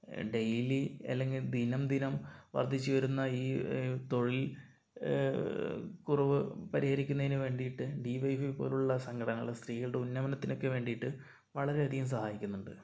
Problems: low volume